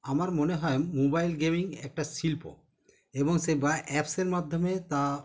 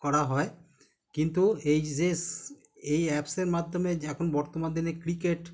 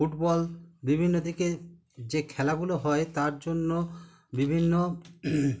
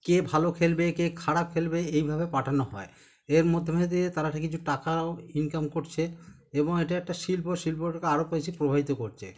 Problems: background sounds at intervals